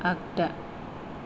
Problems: low volume